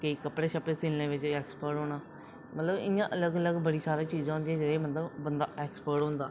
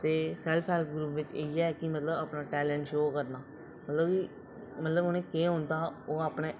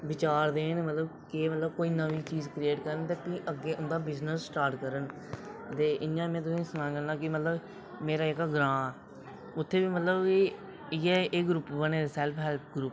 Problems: none marked